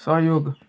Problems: background sounds at intervals